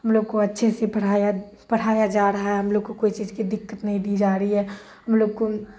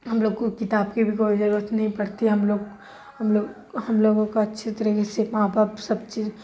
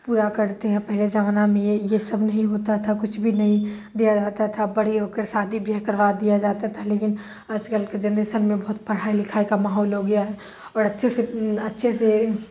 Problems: constant background noise, low volume